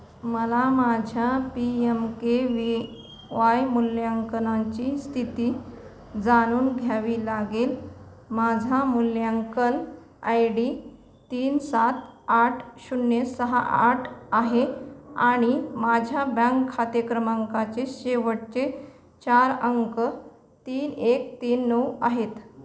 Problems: background sounds at intervals, background conversations at intervals